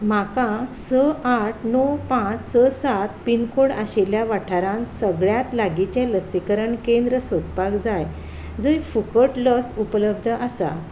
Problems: background sounds at intervals